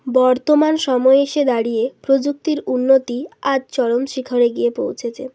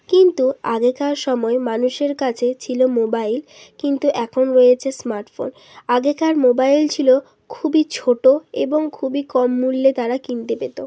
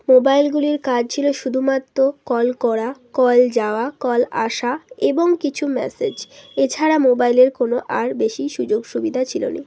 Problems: background sounds at intervals